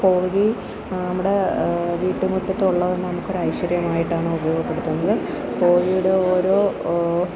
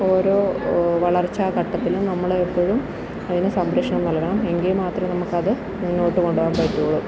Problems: constant background noise